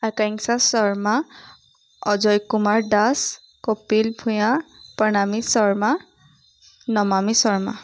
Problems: none marked